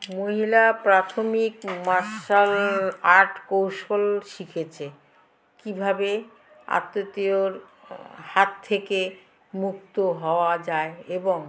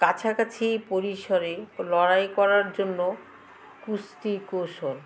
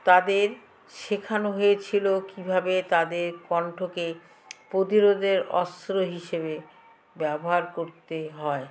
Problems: background sounds at intervals